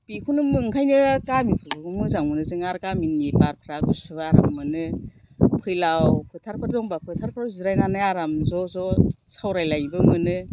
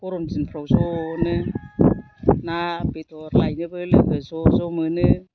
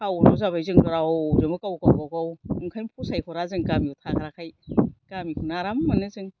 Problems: none marked